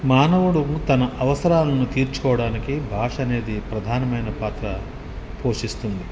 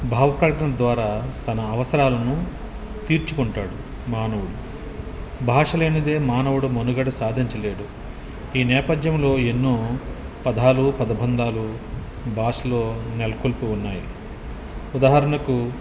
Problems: background conversations at intervals